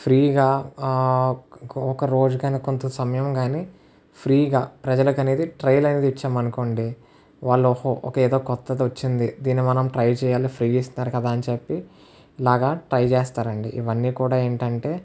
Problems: none marked